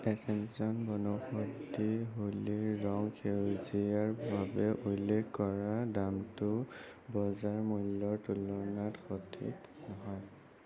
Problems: constant background noise